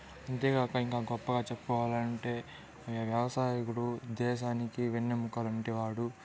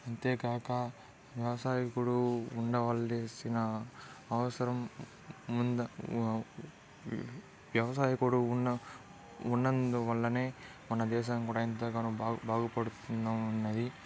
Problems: background sounds at intervals, background conversations at intervals